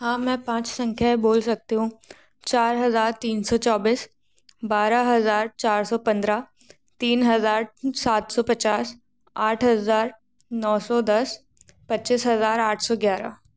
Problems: background sounds at intervals